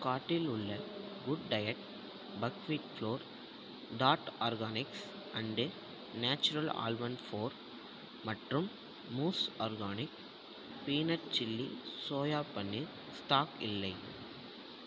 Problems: low volume